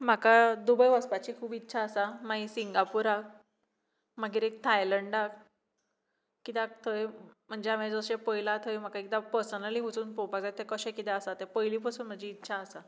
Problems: none marked